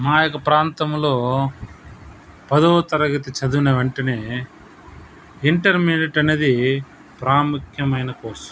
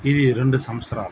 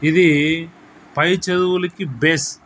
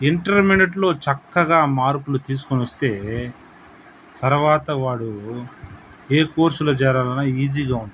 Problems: none marked